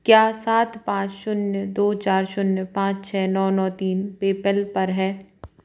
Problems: none marked